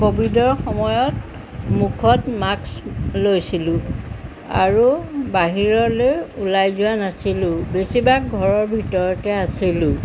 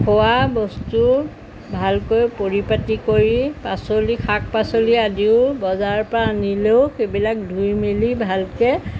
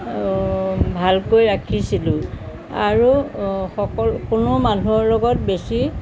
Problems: constant background noise